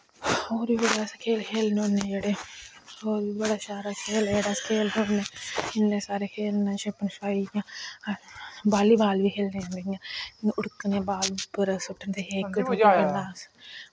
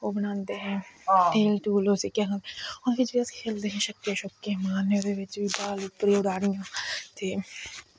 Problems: constant background noise